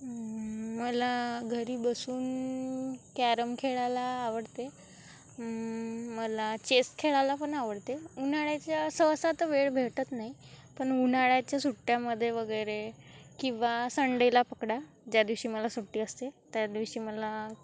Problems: constant background noise, continuous background conversations